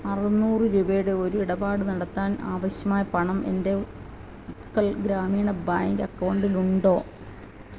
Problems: constant background noise